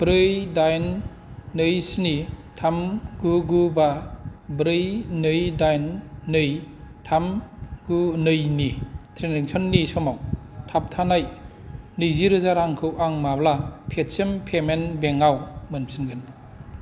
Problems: none marked